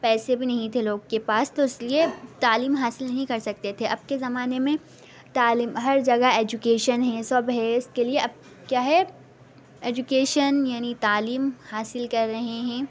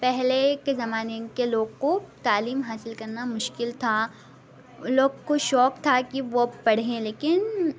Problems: background sounds at intervals, background conversations at intervals